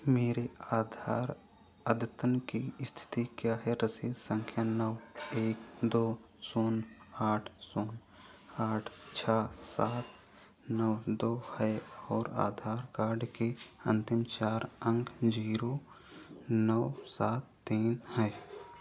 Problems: background sounds at intervals